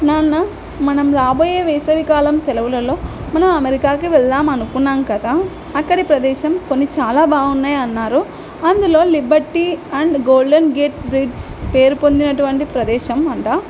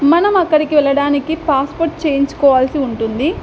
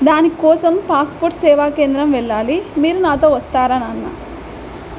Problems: none marked